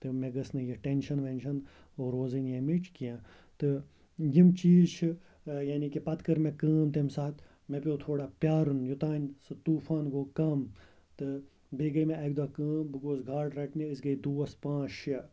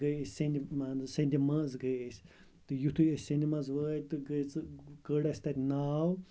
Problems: constant background noise